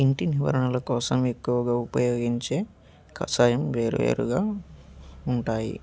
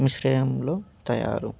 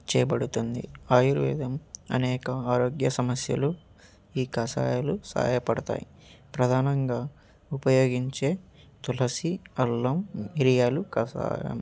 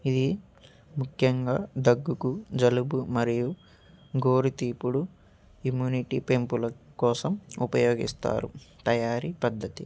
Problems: background sounds at intervals